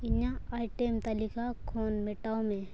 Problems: background sounds at intervals